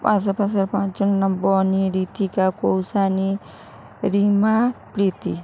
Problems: none marked